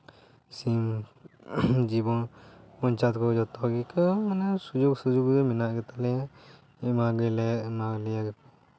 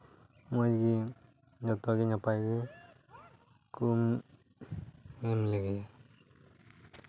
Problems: background sounds at intervals